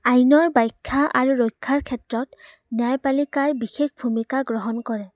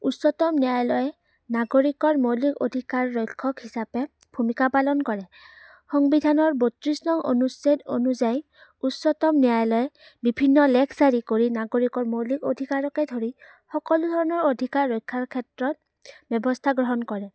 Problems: none marked